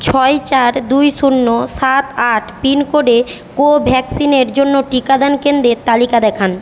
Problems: constant background noise